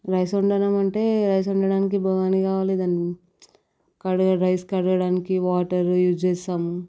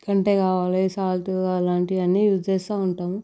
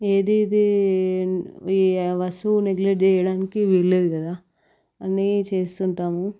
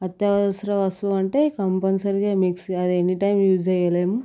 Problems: background sounds at intervals